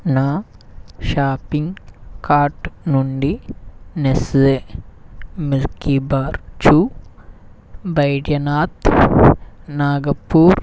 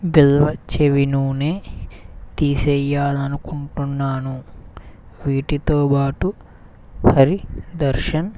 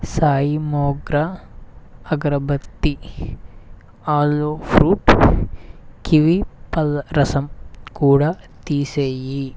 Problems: none marked